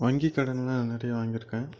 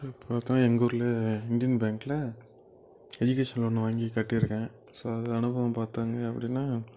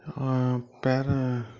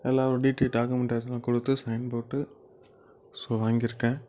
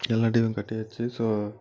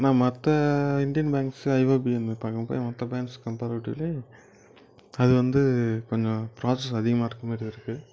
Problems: background sounds at intervals